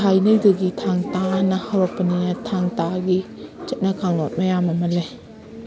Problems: constant background noise